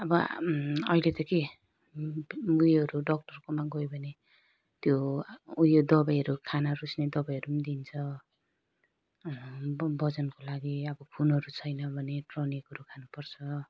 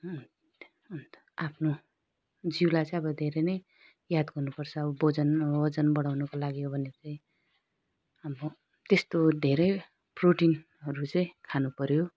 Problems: low volume